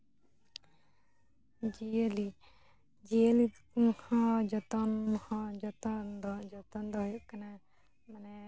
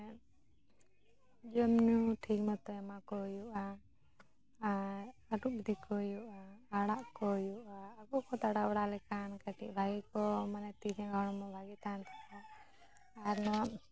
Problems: background sounds at intervals, background conversations at intervals